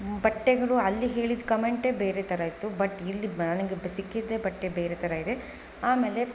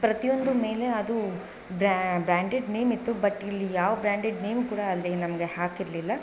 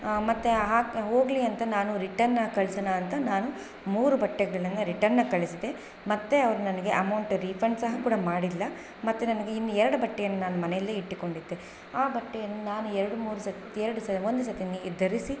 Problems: background sounds at intervals